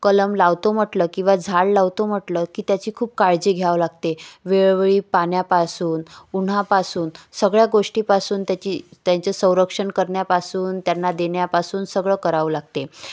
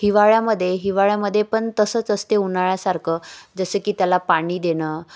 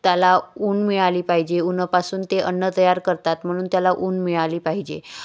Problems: none marked